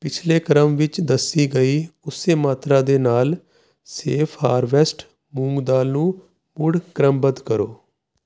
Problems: constant background noise